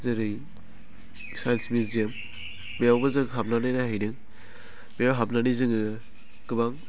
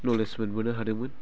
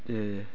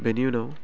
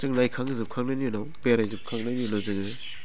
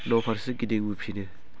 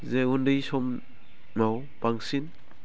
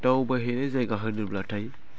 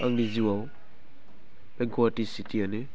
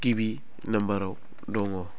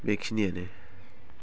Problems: low volume